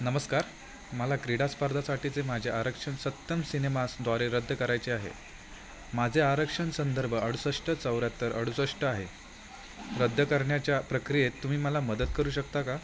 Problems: none marked